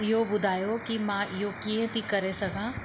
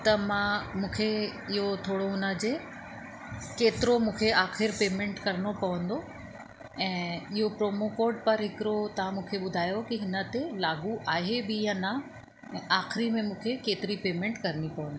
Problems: constant background noise